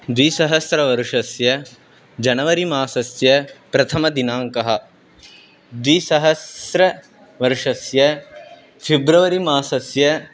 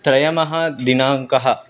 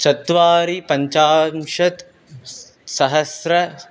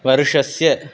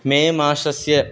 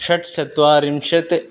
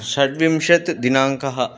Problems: constant background noise